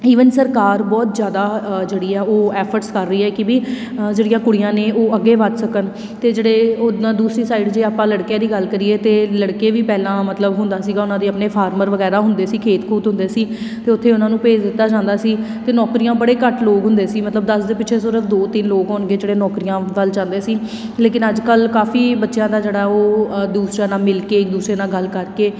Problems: background sounds at intervals